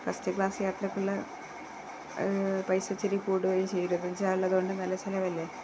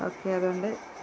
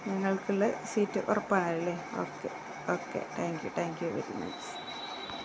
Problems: constant background noise, low volume